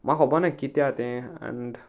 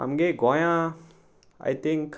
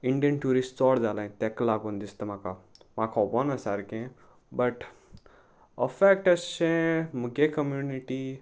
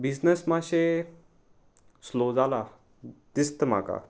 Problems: none marked